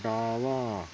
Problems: none marked